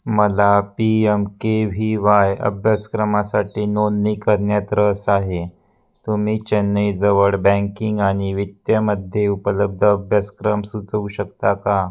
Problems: none marked